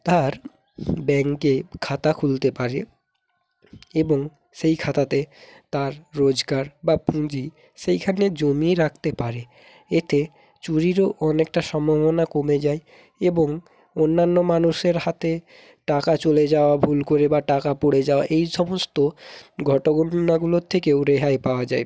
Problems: background sounds at intervals